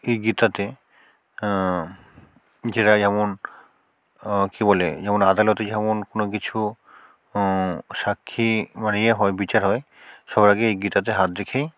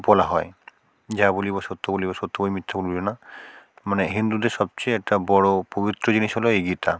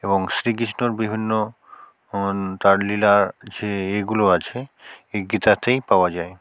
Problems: background sounds at intervals